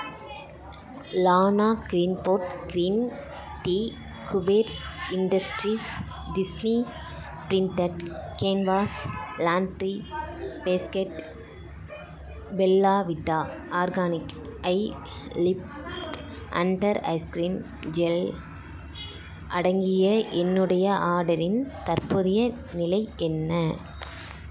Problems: constant background noise, continuous background conversations